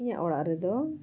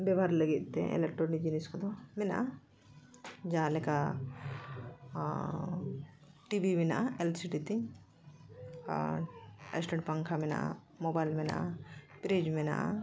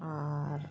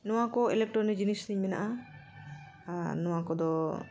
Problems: none marked